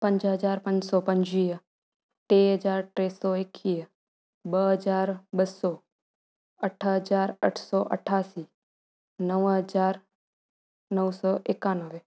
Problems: none marked